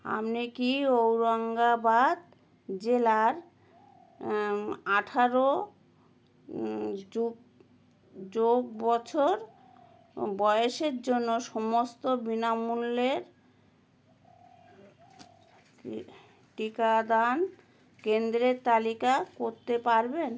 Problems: none marked